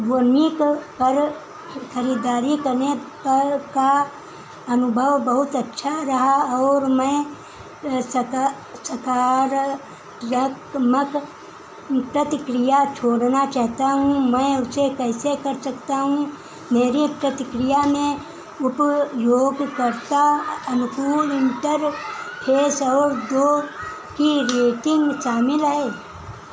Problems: background sounds at intervals